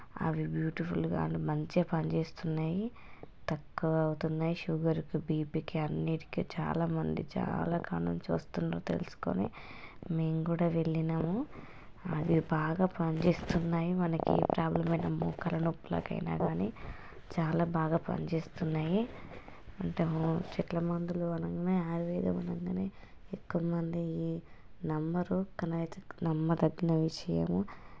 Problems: none marked